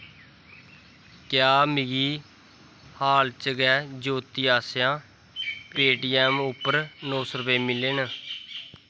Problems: constant background noise